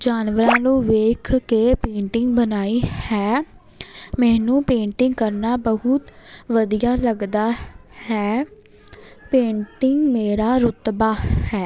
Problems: none marked